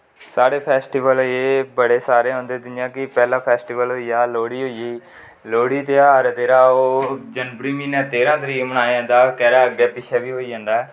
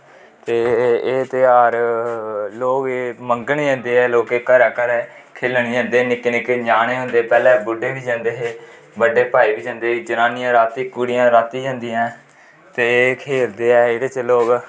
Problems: constant background noise, echo